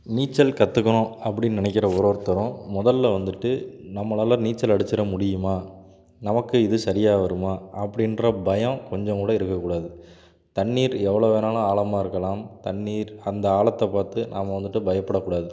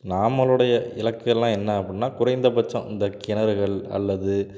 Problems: background sounds at intervals